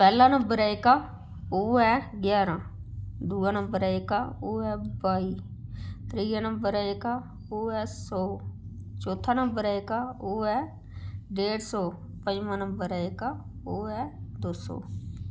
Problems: none marked